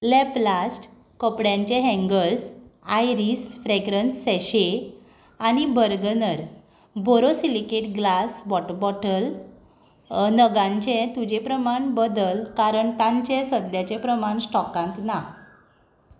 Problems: background sounds at intervals